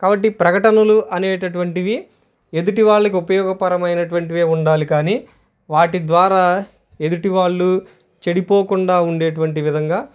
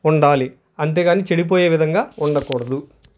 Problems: none marked